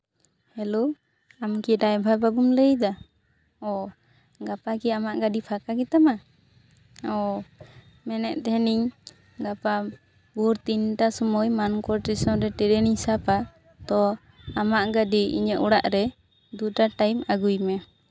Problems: background sounds at intervals, background conversations at intervals